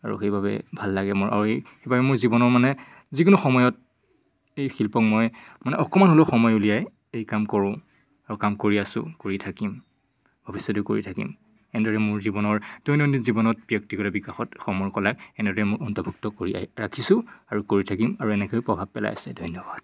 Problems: none marked